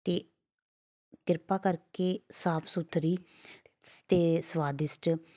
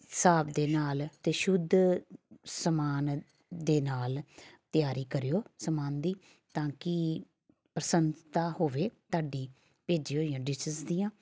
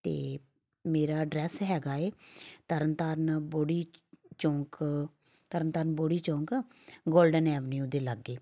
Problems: none marked